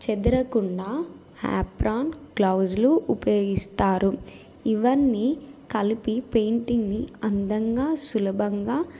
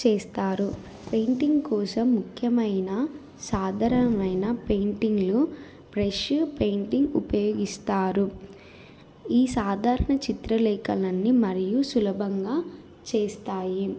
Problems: none marked